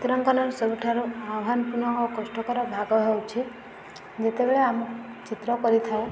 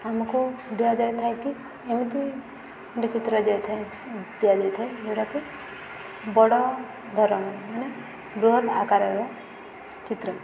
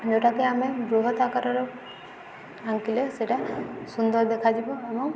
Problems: none marked